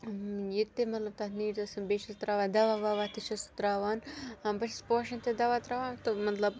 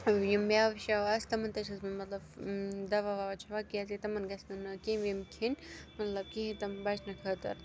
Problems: background sounds at intervals